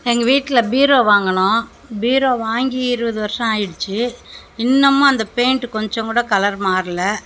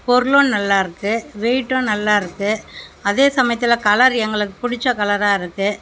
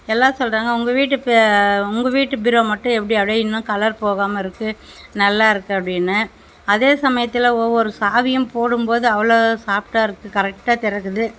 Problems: none marked